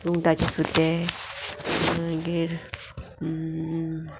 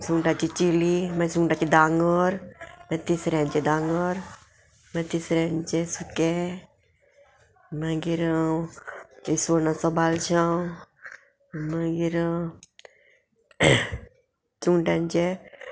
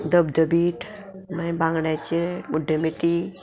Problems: background sounds at intervals, background conversations at intervals